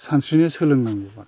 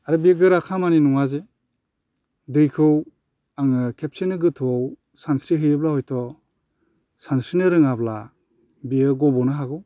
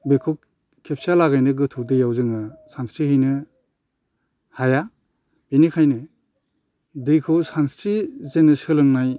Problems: constant background noise